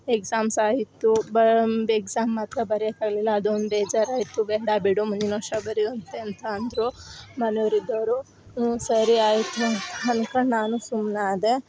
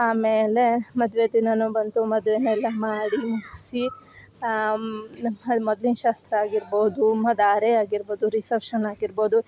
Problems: background sounds at intervals